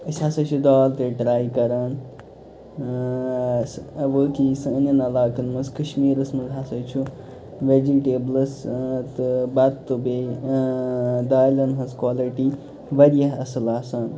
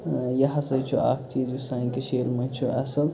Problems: constant background noise